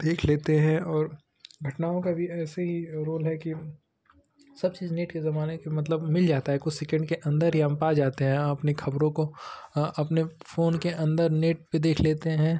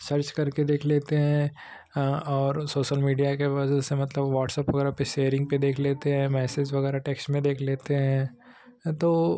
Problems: none marked